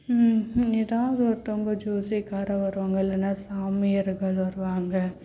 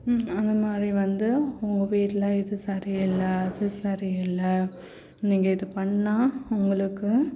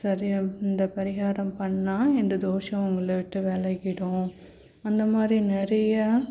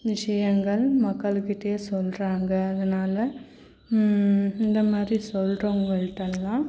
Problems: none marked